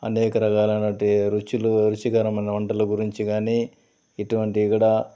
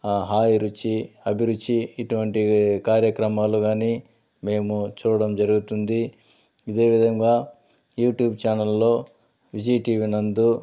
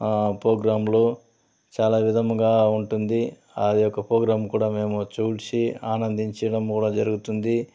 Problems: constant background noise